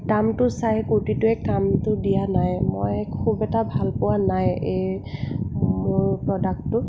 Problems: constant background noise